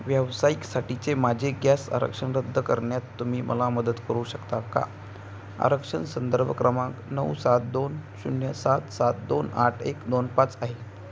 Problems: constant background noise